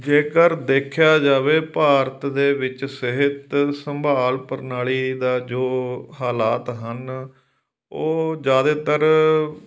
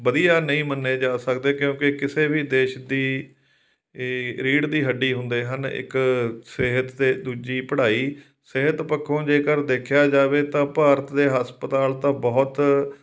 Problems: none marked